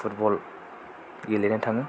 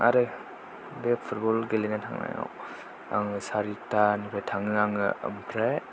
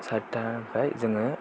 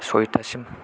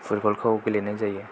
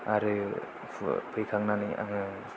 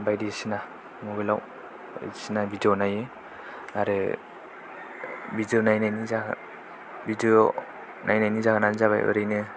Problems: low volume